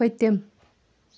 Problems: background sounds at intervals